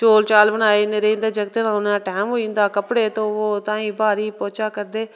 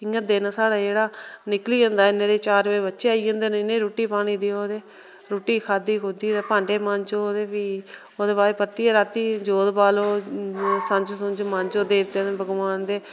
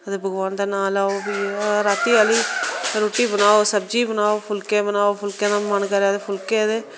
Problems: constant background noise